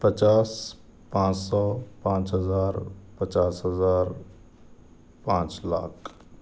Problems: none marked